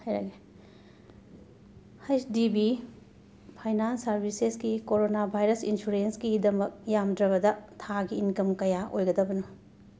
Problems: background sounds at intervals